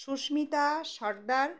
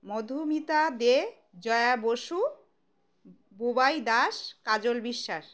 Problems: background sounds at intervals